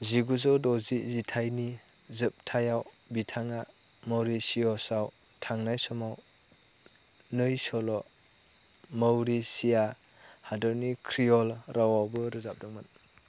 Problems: low volume